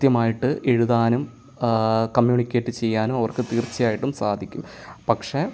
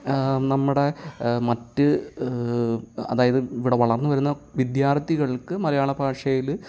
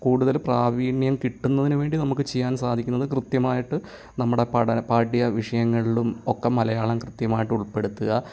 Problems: none marked